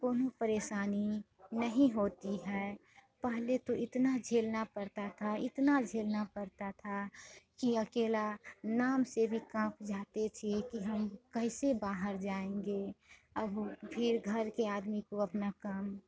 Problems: constant background noise, background conversations at intervals